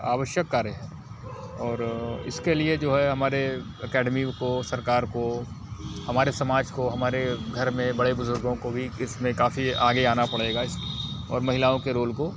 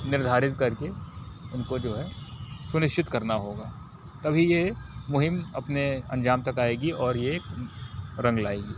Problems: constant background noise